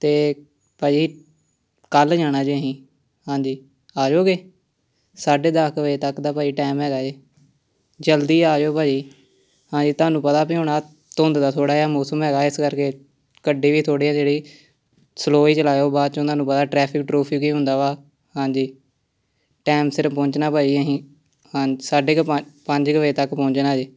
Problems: constant background noise